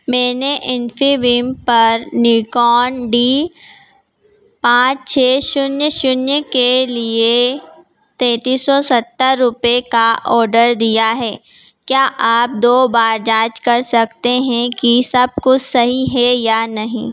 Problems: background sounds at intervals